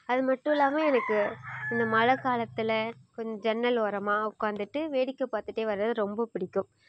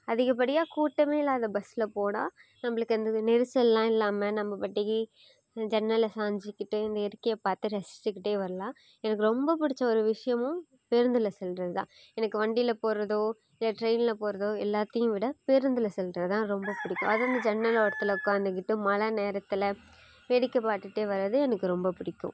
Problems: background sounds at intervals